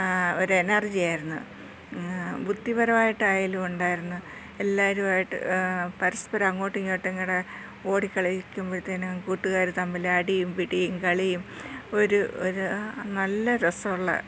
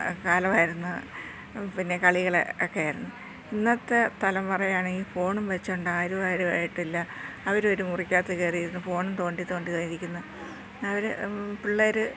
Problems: low volume